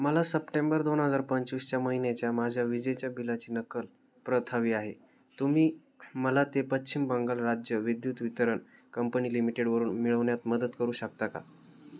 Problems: none marked